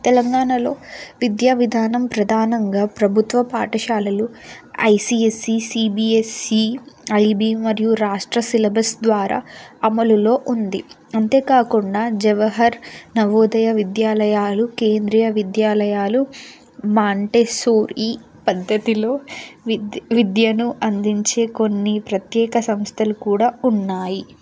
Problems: constant background noise